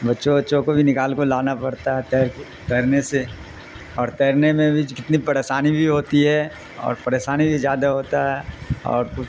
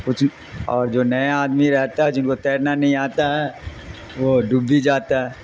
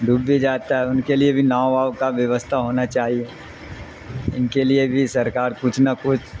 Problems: constant background noise